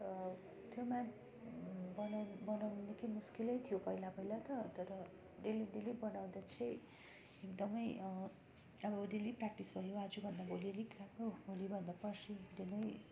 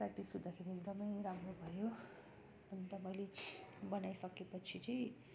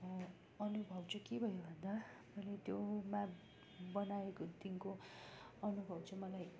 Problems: continuous background conversations